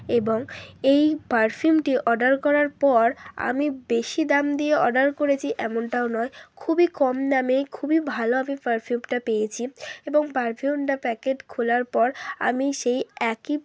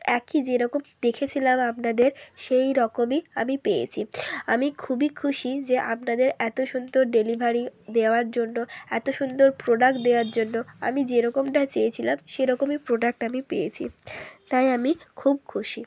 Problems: none marked